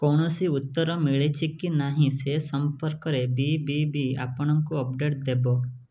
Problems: none marked